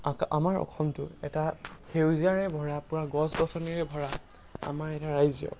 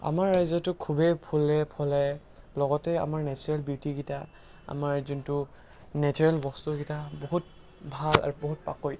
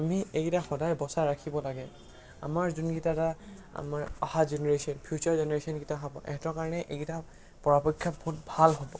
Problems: background sounds at intervals